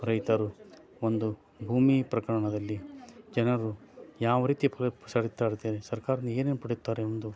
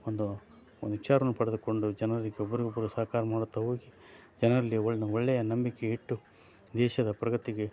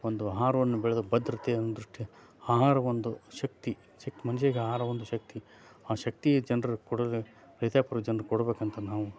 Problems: background sounds at intervals